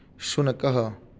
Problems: none marked